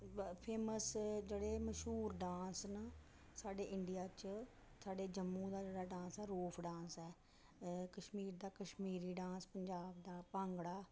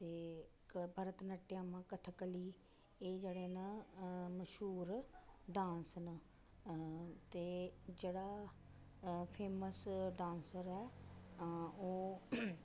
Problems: echo, low volume